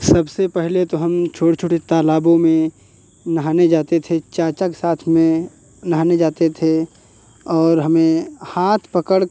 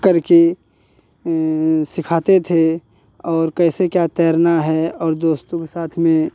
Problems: none marked